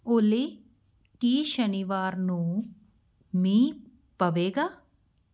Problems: none marked